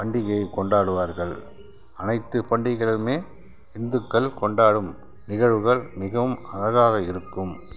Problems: background sounds at intervals